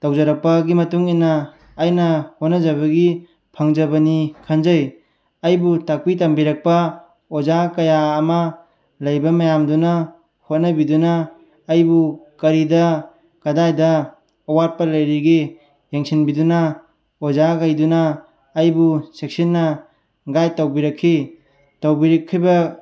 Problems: none marked